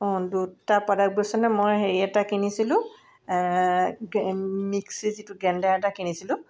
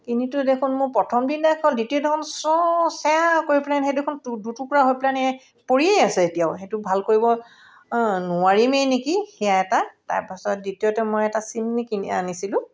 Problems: none marked